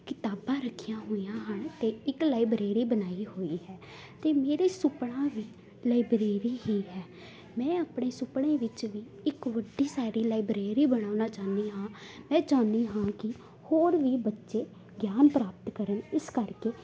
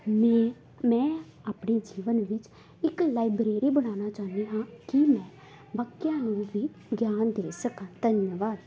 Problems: background sounds at intervals